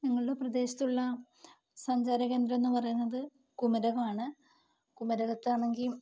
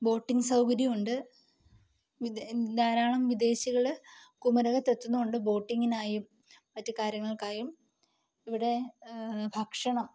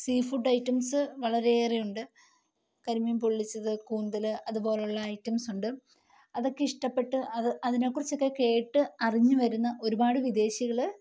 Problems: low volume